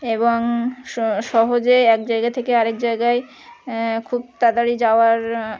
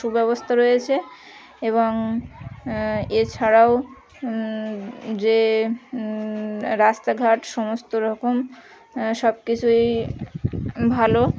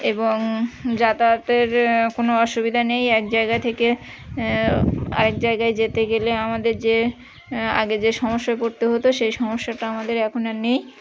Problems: constant background noise, background conversations at intervals